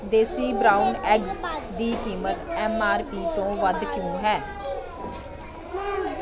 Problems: continuous background conversations